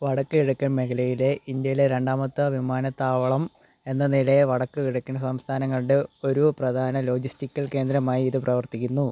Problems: constant background noise